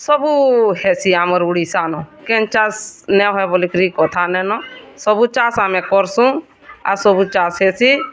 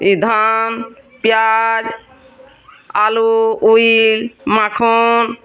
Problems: constant background noise, continuous background conversations